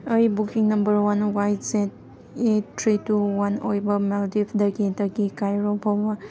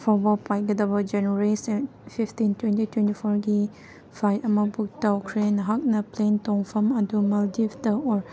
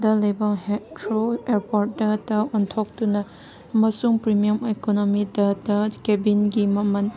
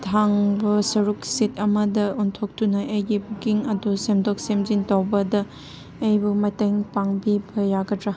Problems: background sounds at intervals